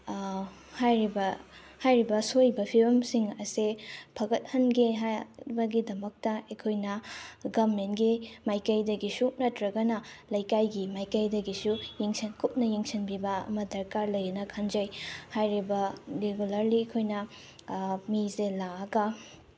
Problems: none marked